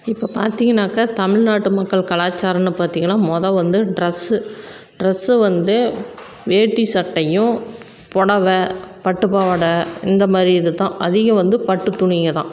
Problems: none marked